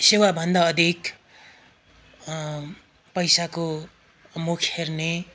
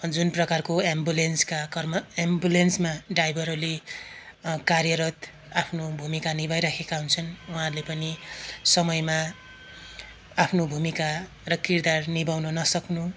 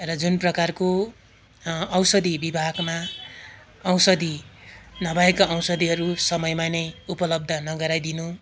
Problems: constant background noise